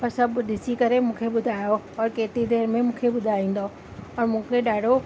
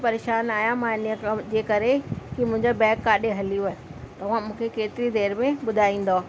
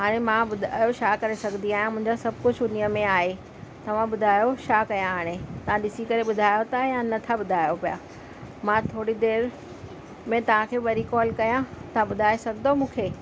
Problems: constant background noise